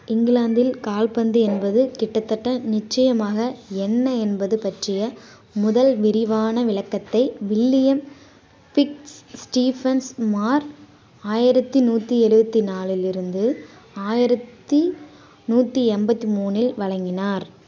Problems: constant background noise